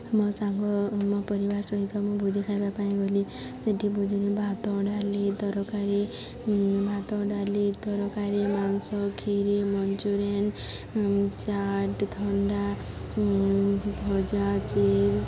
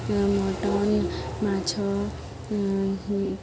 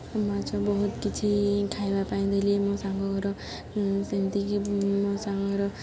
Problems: constant background noise, continuous background conversations